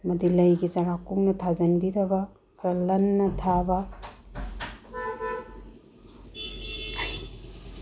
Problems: low volume